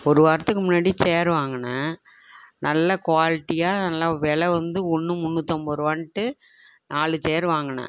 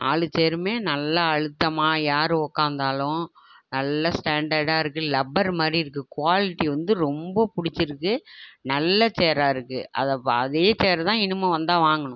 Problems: none marked